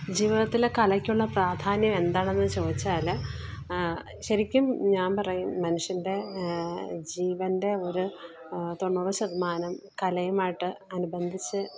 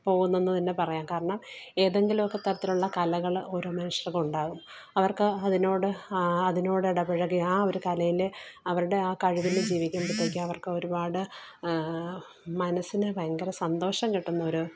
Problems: background sounds at intervals, background conversations at intervals